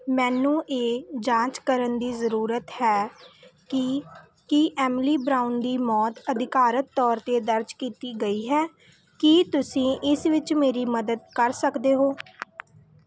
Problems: none marked